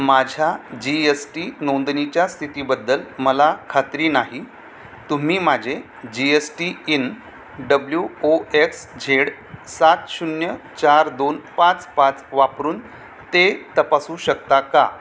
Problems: constant background noise